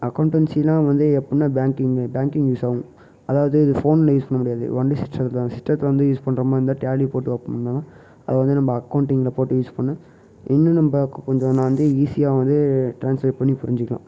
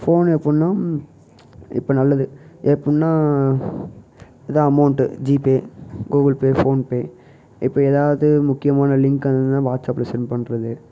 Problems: background sounds at intervals